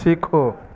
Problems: constant background noise